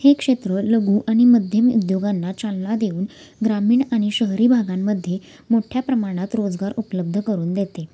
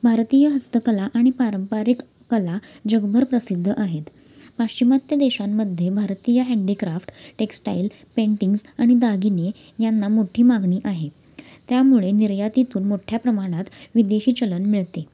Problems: constant background noise, background conversations at intervals